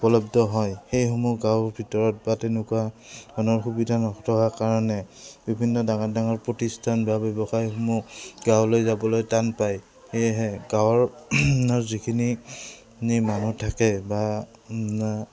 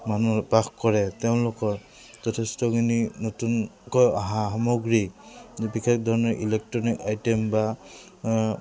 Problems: background sounds at intervals